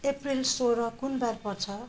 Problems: background conversations at intervals